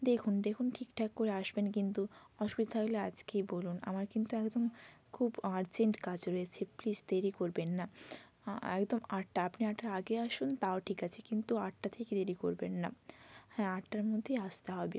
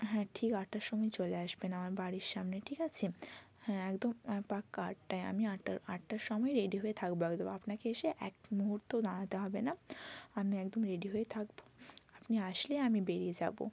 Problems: constant background noise